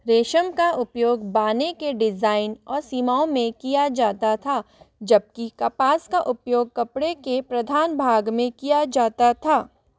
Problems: none marked